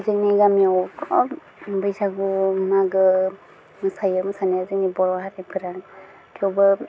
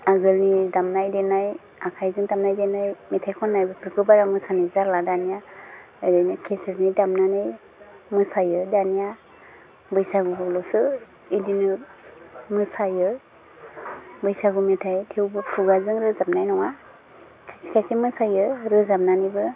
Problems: constant background noise